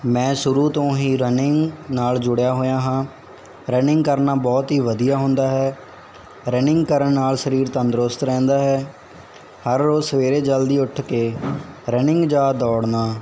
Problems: constant background noise